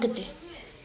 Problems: constant background noise, echo